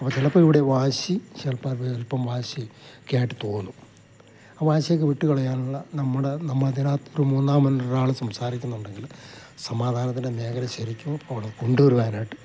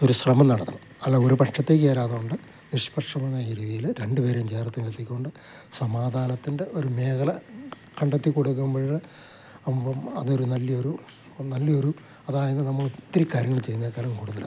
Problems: constant background noise, low volume